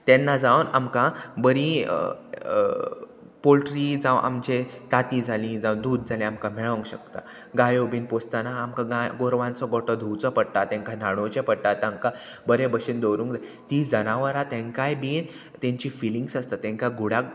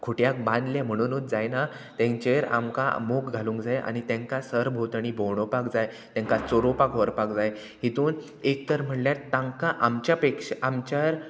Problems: constant background noise